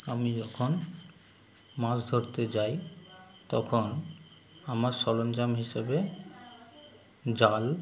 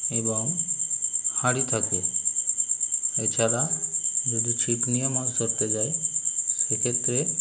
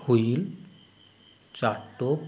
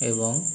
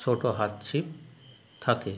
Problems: none marked